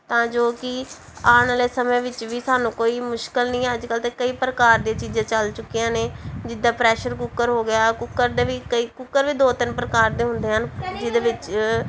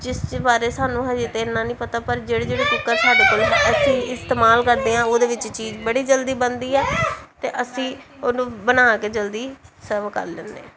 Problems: background sounds at intervals, background conversations at intervals